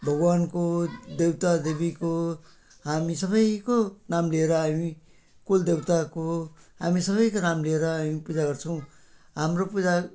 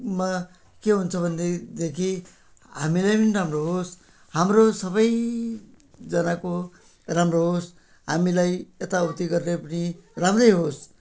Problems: constant background noise